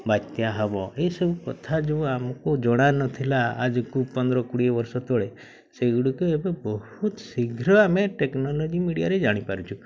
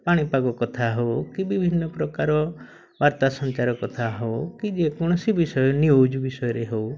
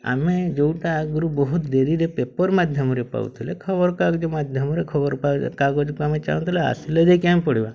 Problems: none marked